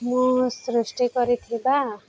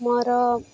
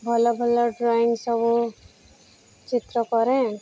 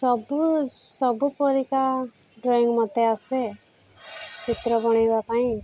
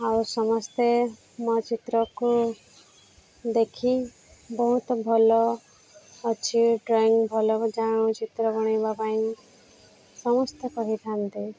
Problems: none marked